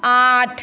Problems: constant background noise